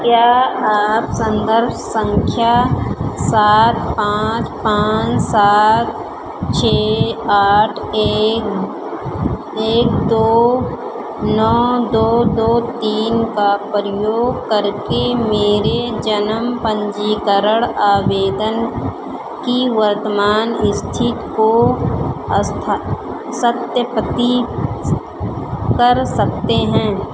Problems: none marked